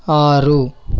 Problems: constant background noise